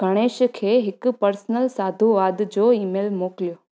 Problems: none marked